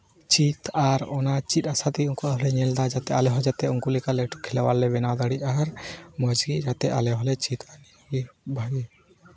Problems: none marked